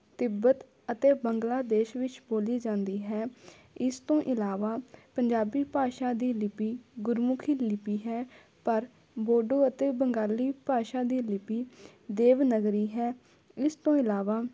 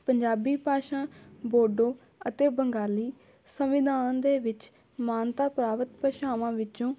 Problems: background conversations at intervals